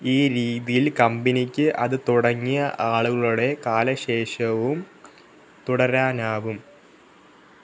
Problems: none marked